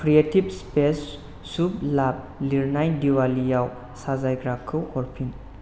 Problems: constant background noise